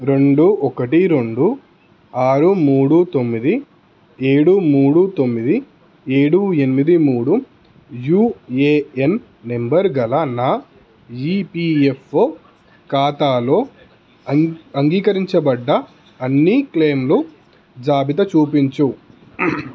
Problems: none marked